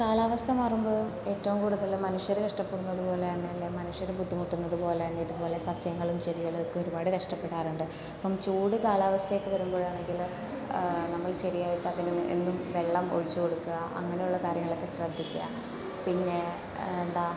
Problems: constant background noise, low volume